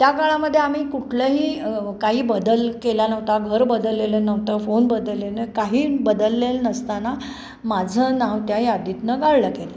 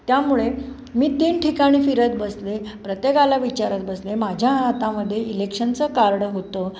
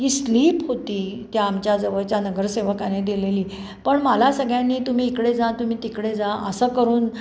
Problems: constant background noise